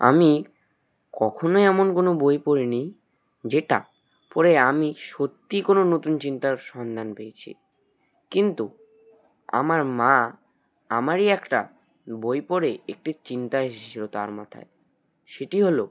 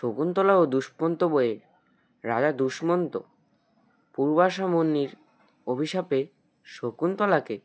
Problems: background sounds at intervals